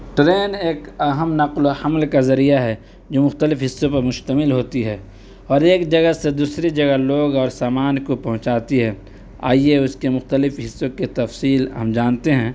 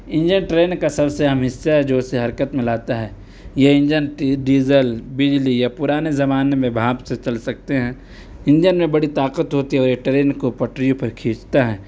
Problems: none marked